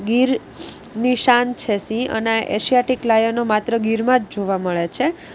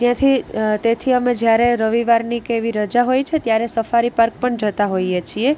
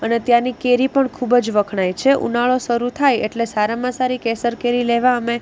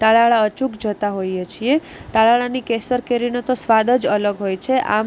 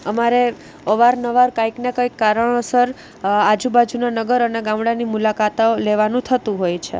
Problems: constant background noise